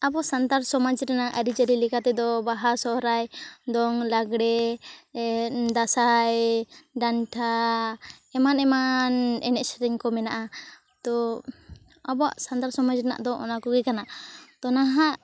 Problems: constant background noise, background conversations at intervals